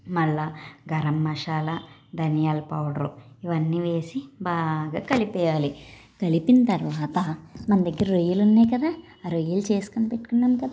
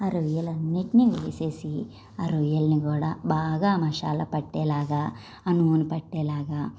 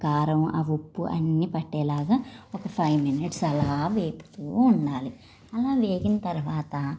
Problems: background sounds at intervals